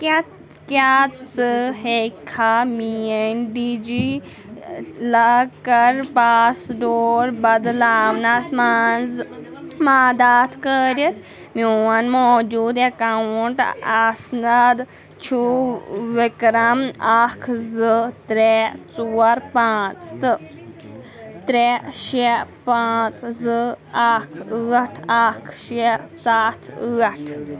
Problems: none marked